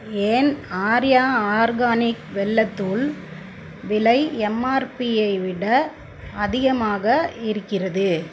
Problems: constant background noise